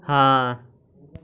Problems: continuous background conversations